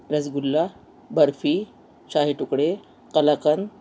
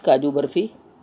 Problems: constant background noise